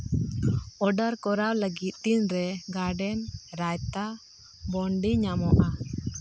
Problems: none marked